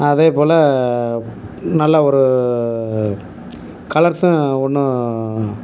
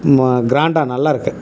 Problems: background sounds at intervals